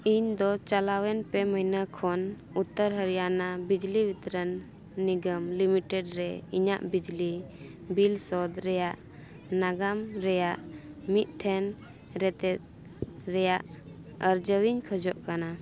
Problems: none marked